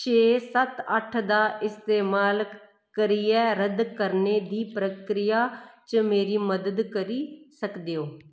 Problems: echo